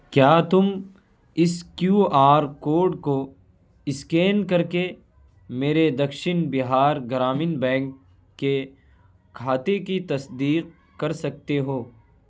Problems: none marked